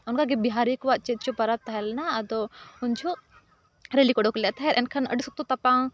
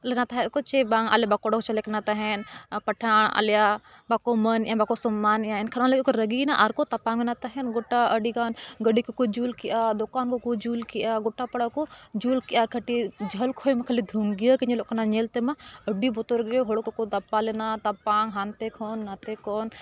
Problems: continuous background conversations